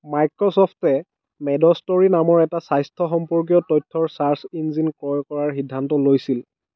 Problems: background conversations at intervals